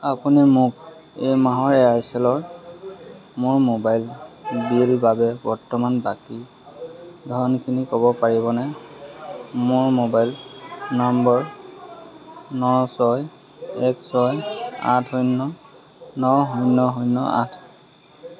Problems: constant background noise, background conversations at intervals